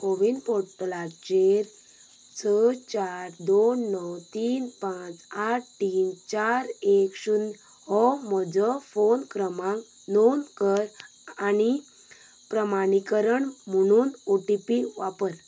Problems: background sounds at intervals